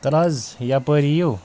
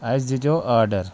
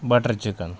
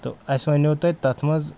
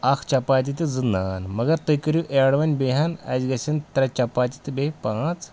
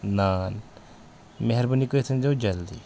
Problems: none marked